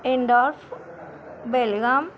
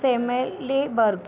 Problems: none marked